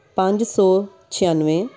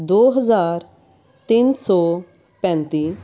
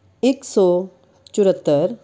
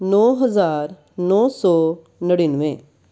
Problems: background sounds at intervals, background conversations at intervals